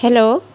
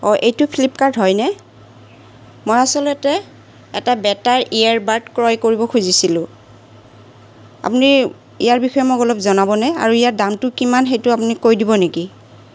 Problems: none marked